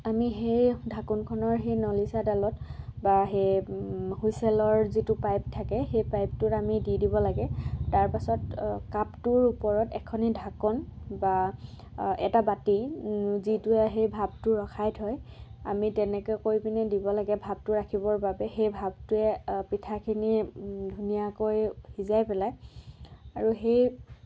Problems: background sounds at intervals, background conversations at intervals